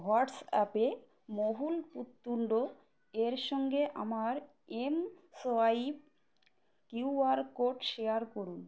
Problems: constant background noise